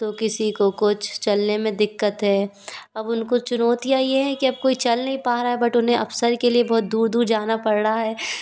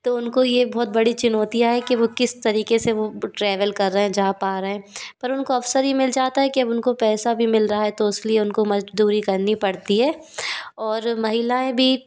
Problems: constant background noise